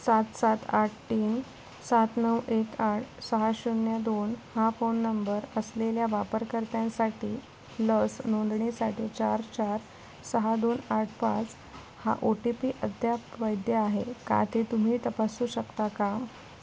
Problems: constant background noise